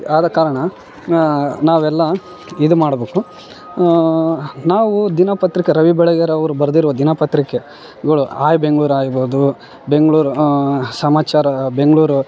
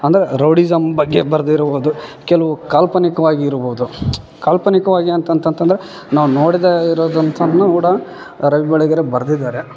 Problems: background sounds at intervals